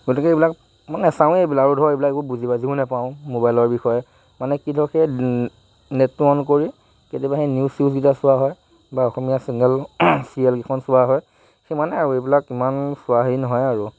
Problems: constant background noise